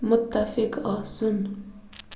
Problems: constant background noise